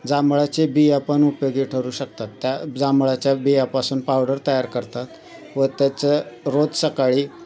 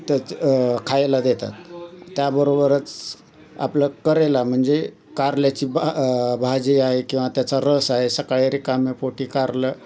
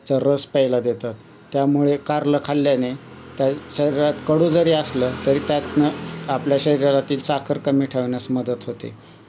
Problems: none marked